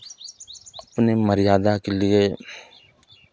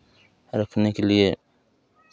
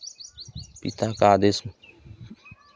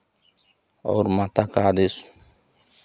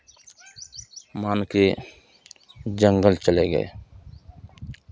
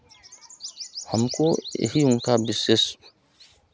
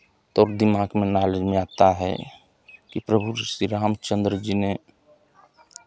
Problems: constant background noise